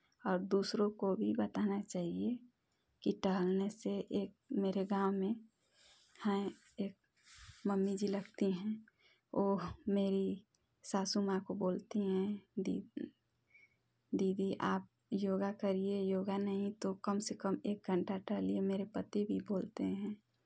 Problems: none marked